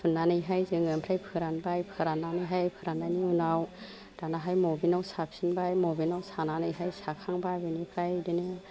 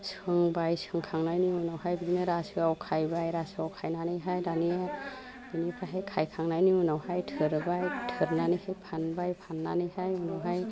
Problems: low volume